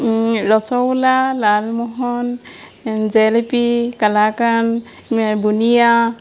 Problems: constant background noise